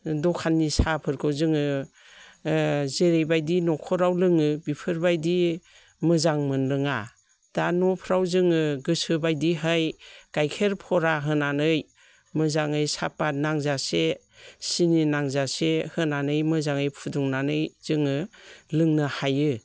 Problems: none marked